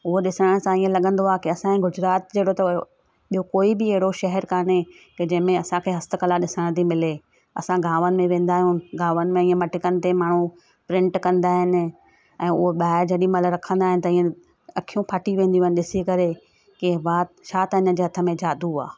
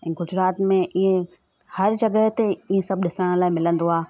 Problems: constant background noise